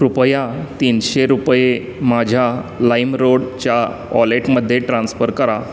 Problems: constant background noise